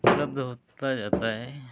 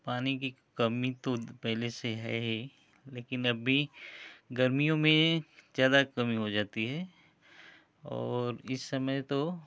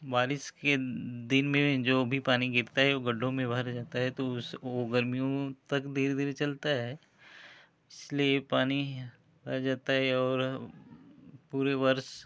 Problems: none marked